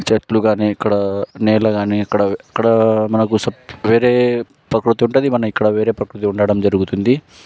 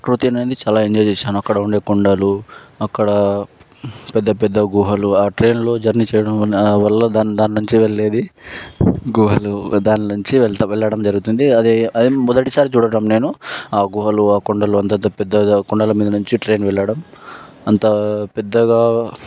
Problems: background sounds at intervals